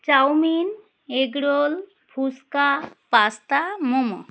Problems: background sounds at intervals